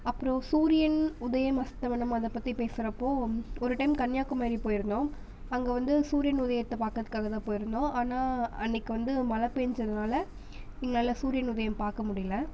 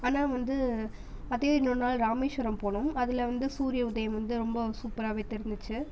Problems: none marked